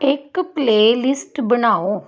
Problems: background conversations at intervals